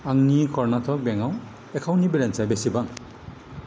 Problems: constant background noise